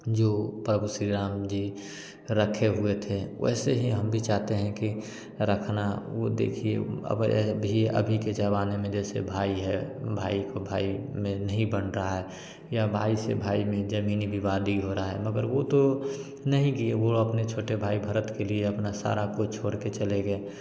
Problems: constant background noise